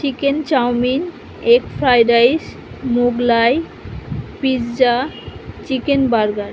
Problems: constant background noise